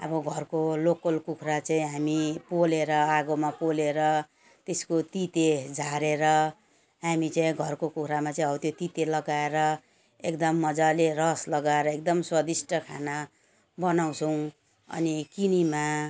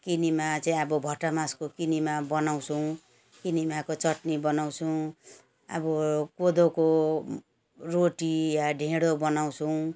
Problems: background sounds at intervals